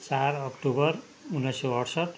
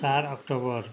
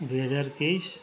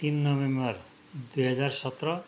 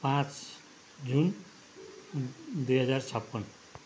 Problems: constant background noise